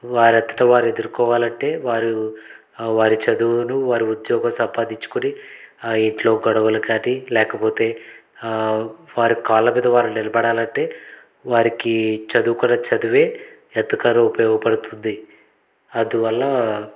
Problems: background sounds at intervals, background conversations at intervals